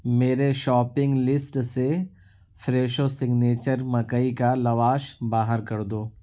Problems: none marked